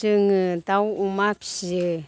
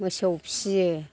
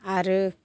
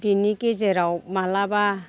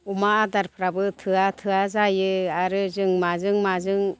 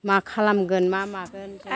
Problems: none marked